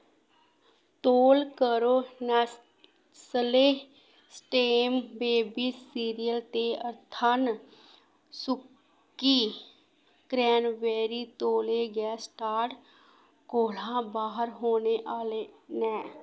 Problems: background sounds at intervals